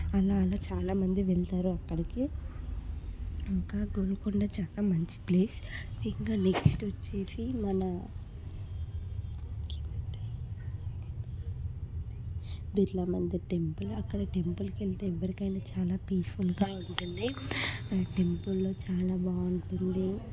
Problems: none marked